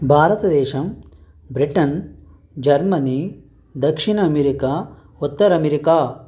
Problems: constant background noise